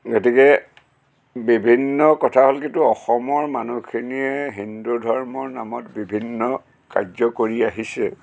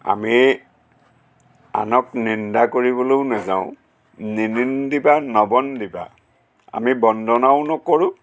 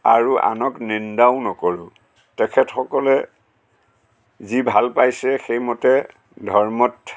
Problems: constant background noise, background conversations at intervals